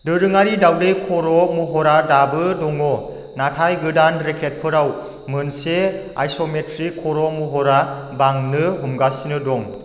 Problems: low volume